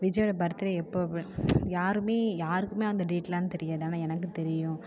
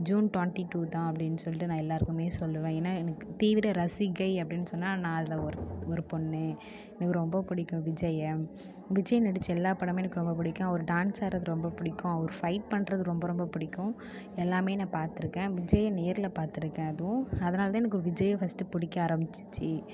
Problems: none marked